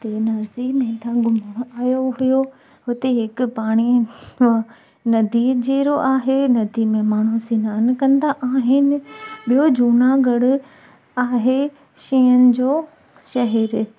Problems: constant background noise